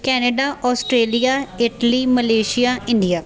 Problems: continuous background conversations